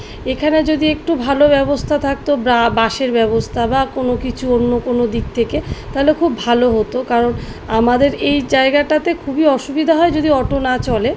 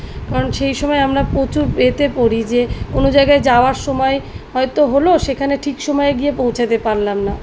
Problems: none marked